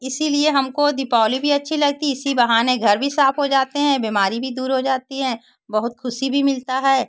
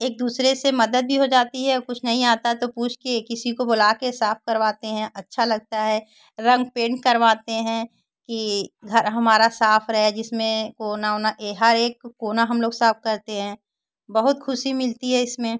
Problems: constant background noise